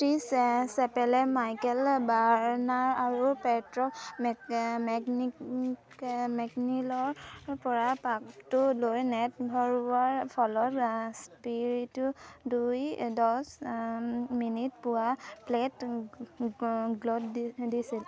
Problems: none marked